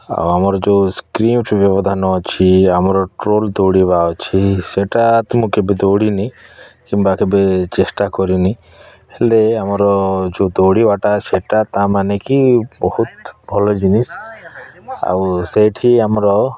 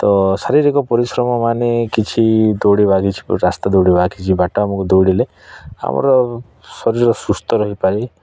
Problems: background conversations at intervals